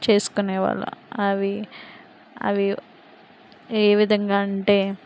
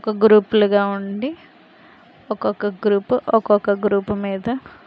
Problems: constant background noise